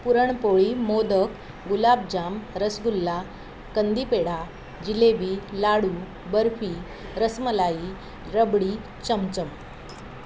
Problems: none marked